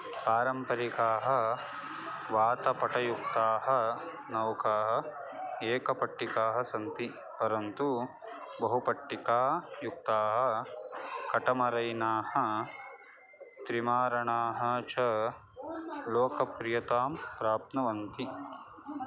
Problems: constant background noise